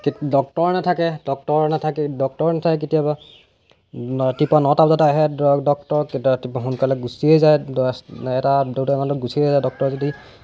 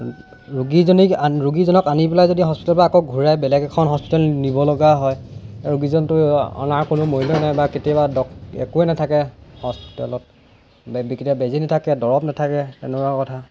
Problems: background sounds at intervals